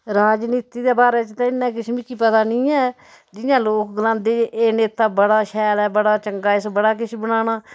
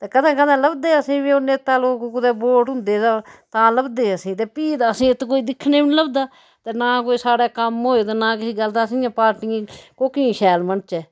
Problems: background sounds at intervals